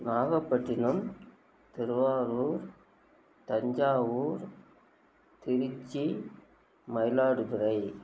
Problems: constant background noise